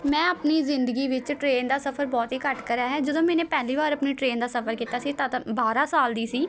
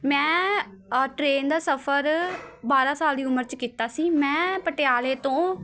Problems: constant background noise